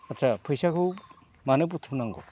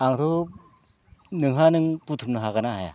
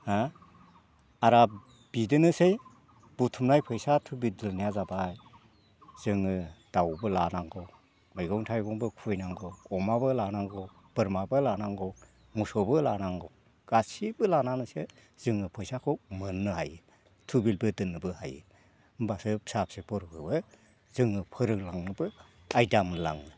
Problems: none marked